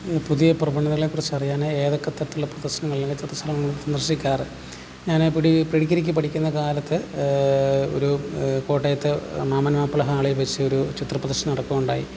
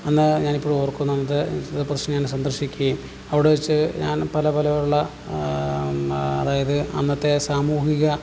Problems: background sounds at intervals